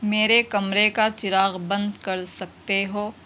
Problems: constant background noise, background conversations at intervals